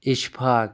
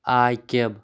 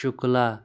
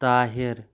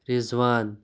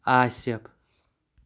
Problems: background sounds at intervals